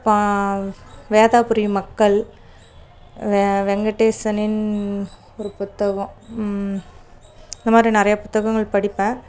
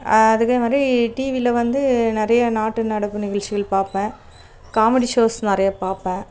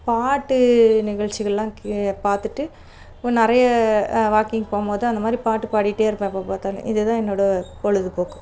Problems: none marked